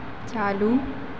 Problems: constant background noise